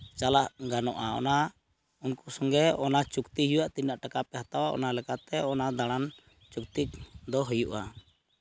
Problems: background sounds at intervals